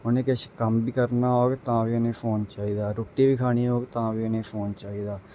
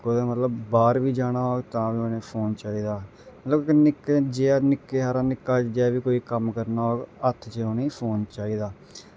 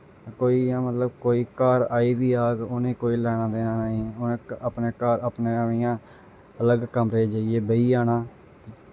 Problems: none marked